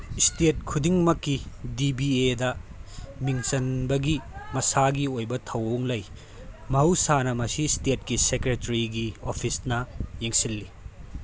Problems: constant background noise